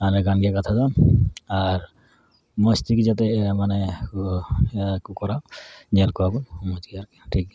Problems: none marked